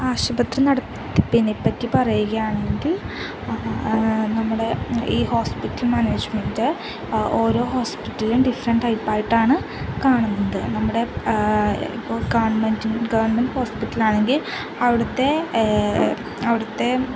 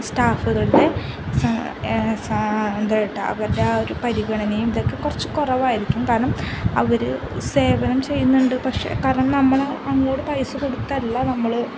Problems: constant background noise, low volume